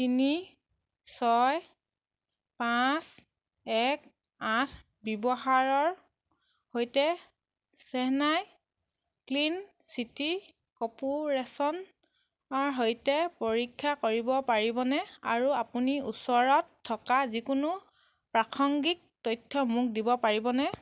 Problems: none marked